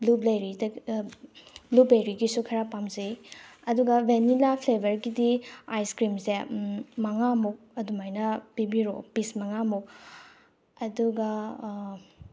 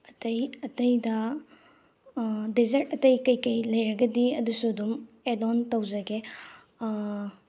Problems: background sounds at intervals